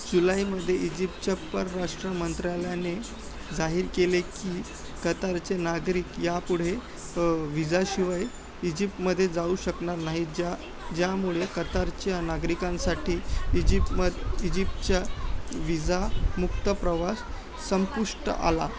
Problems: constant background noise, continuous background conversations, low volume